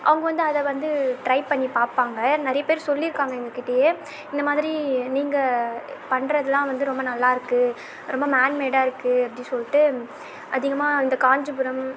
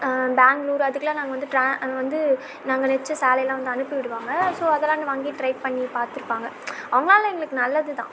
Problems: background sounds at intervals